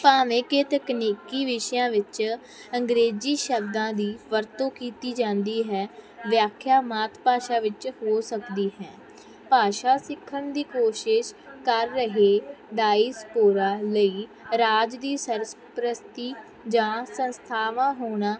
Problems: constant background noise